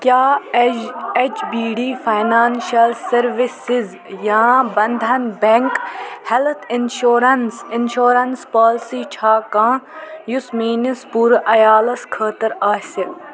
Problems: constant background noise